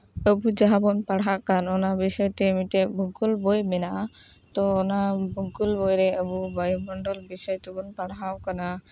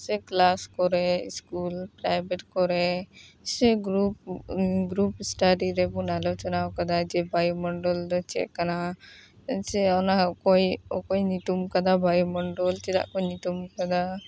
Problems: background sounds at intervals, background conversations at intervals